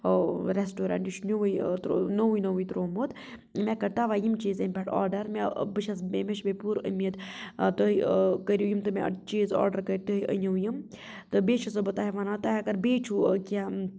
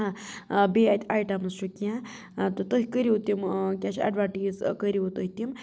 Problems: constant background noise